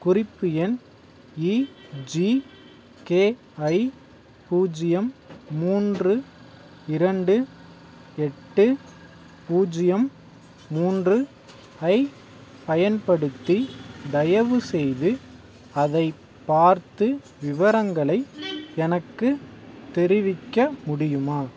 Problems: background sounds at intervals